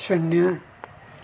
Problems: background sounds at intervals